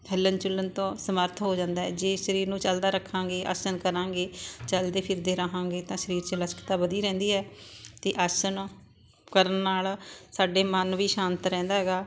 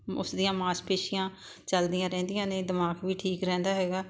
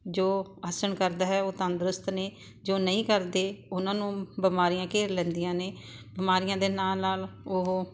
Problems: constant background noise